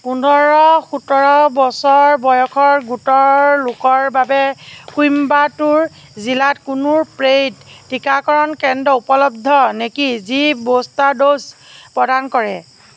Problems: none marked